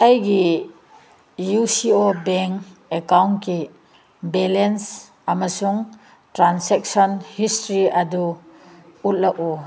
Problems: none marked